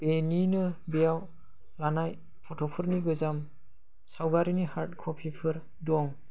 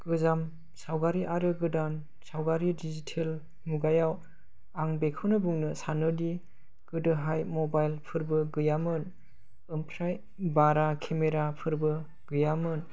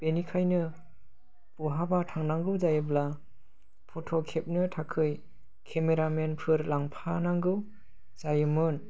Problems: low volume